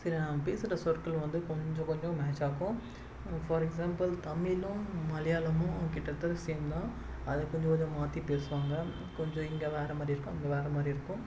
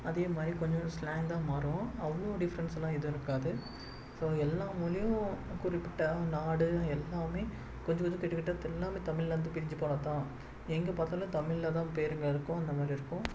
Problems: constant background noise